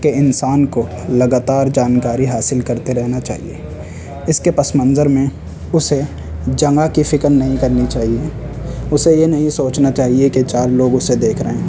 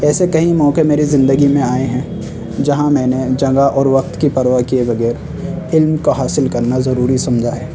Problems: constant background noise